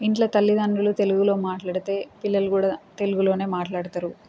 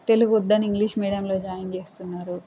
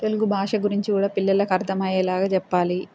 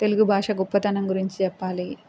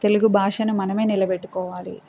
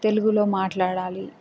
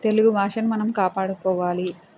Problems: constant background noise